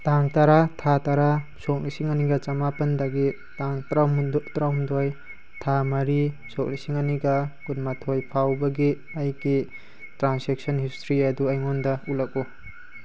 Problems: constant background noise